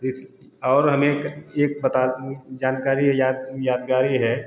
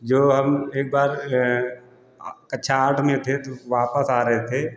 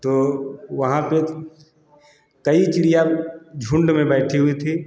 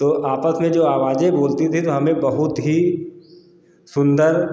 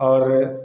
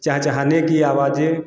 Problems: constant background noise